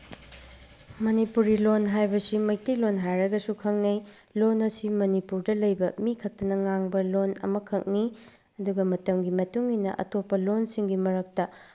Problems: background sounds at intervals